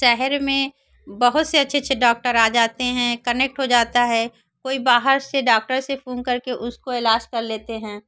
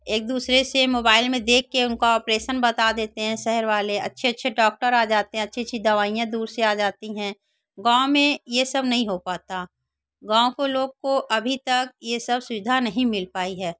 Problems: none marked